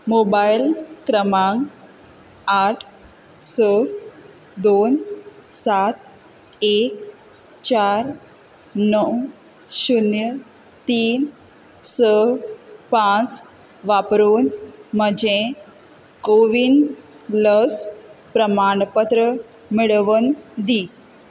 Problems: constant background noise